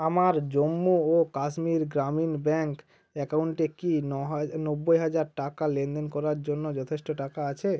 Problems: background sounds at intervals